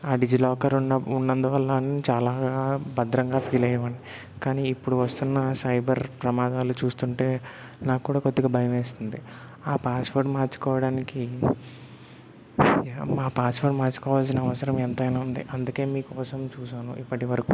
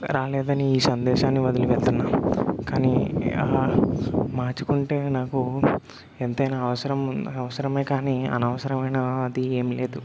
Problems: background sounds at intervals